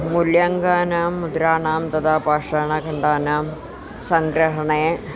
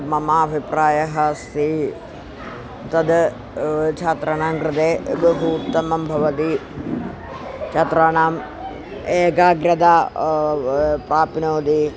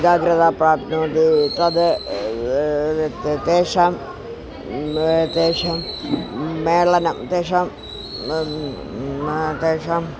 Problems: constant background noise